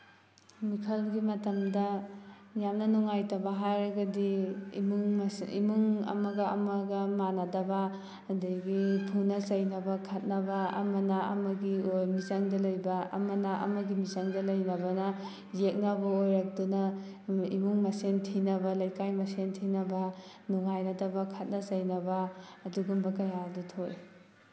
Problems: background sounds at intervals